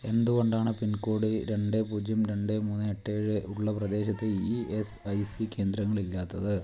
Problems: low volume